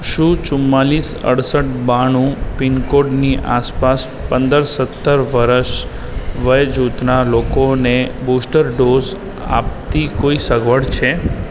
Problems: continuous background conversations